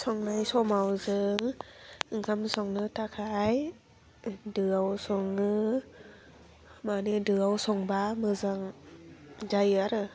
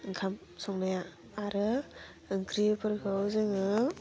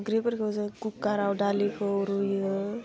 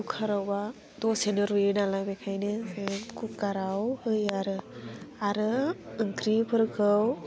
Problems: constant background noise